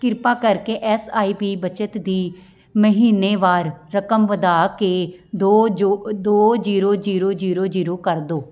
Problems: background sounds at intervals, background conversations at intervals